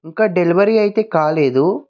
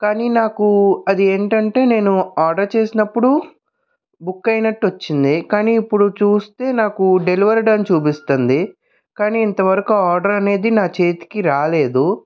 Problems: background sounds at intervals